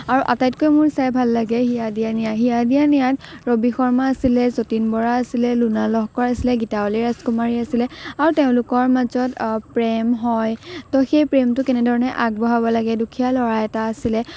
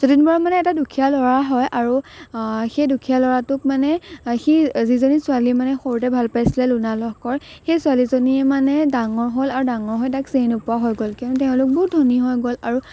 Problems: none marked